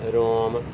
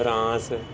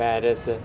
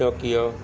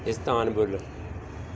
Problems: constant background noise